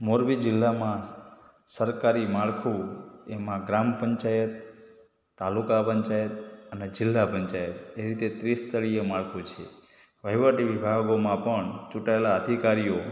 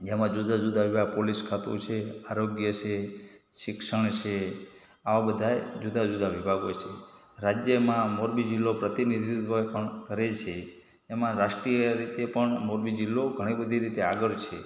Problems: background sounds at intervals, echo